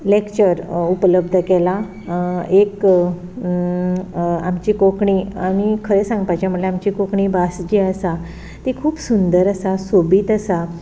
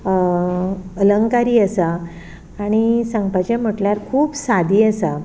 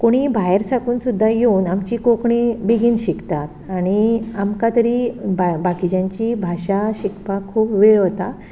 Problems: none marked